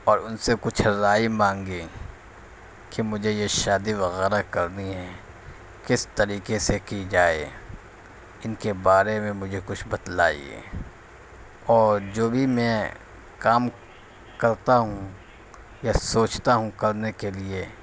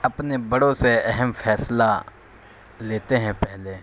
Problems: constant background noise